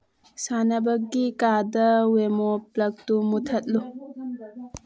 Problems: low volume